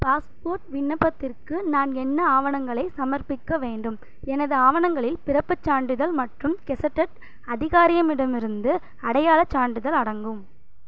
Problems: none marked